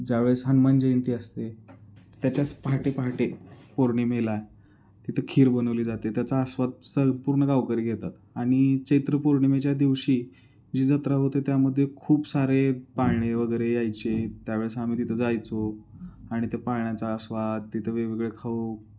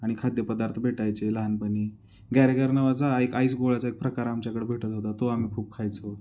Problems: constant background noise